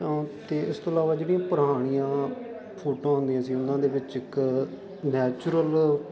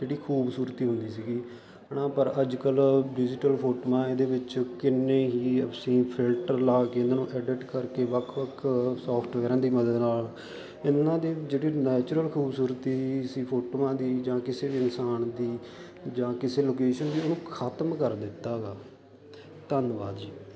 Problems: constant background noise